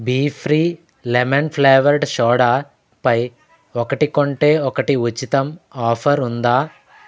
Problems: constant background noise, background conversations at intervals